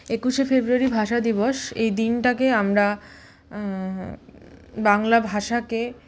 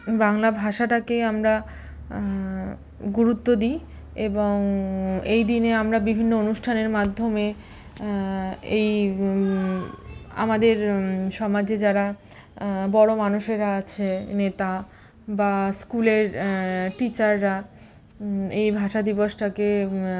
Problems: none marked